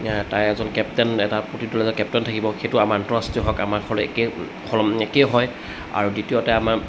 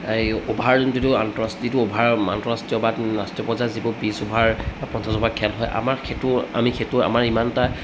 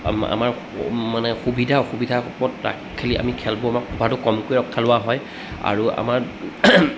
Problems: constant background noise